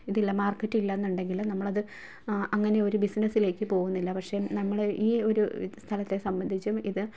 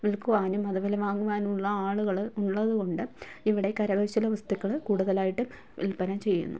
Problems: none marked